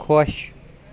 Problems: none marked